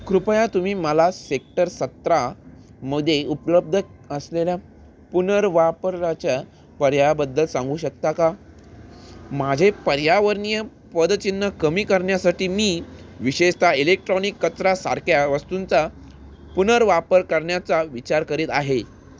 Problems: constant background noise